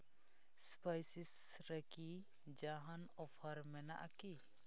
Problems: low volume